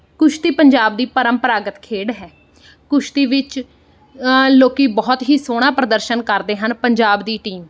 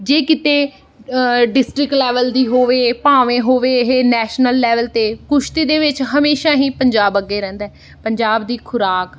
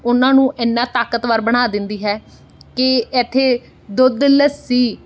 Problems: background sounds at intervals